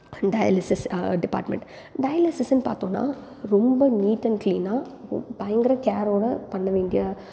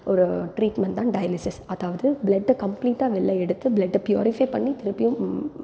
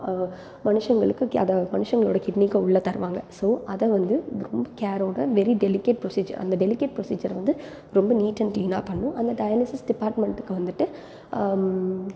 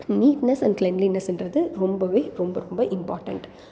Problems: background sounds at intervals